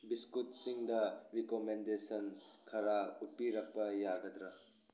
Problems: background sounds at intervals